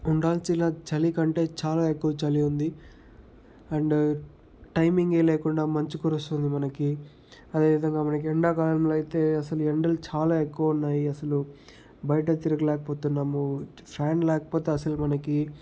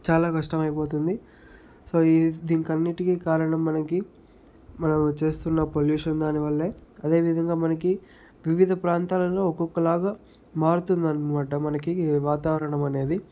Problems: none marked